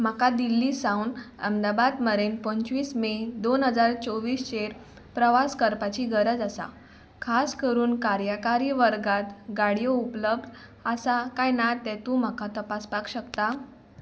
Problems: constant background noise